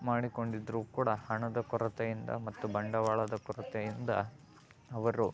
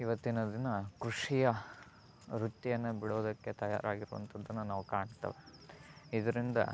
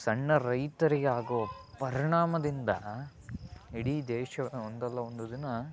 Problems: background sounds at intervals, background conversations at intervals